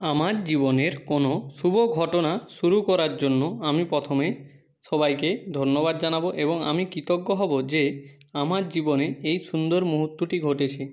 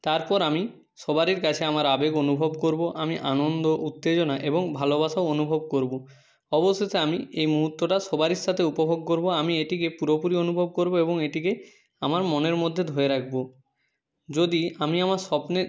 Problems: background sounds at intervals